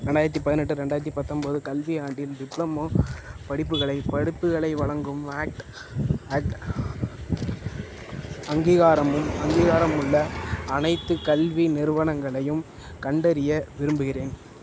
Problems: constant background noise